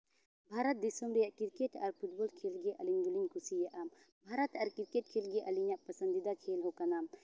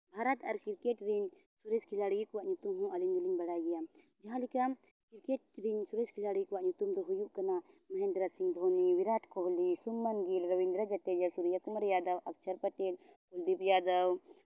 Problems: none marked